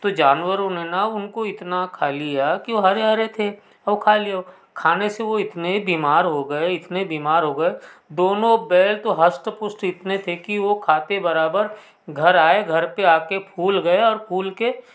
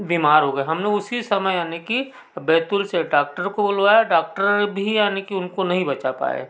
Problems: none marked